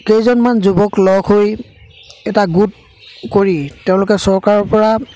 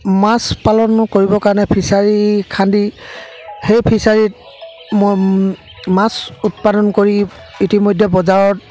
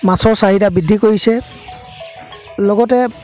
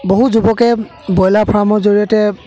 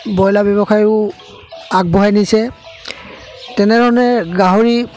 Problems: constant background noise, background conversations at intervals